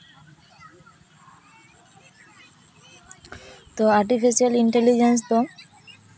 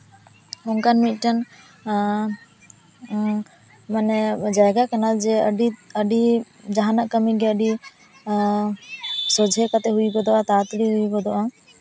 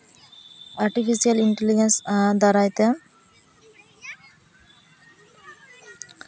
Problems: continuous background conversations